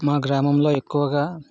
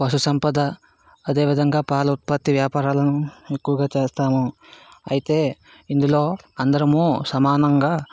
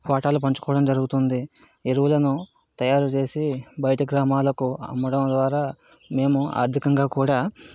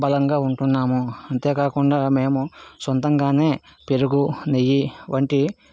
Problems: background sounds at intervals